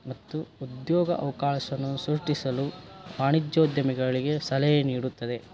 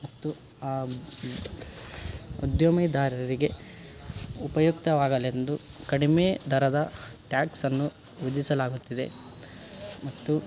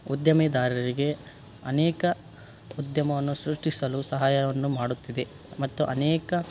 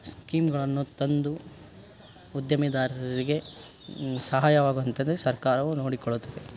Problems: none marked